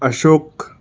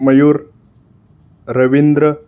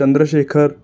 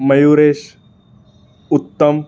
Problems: background sounds at intervals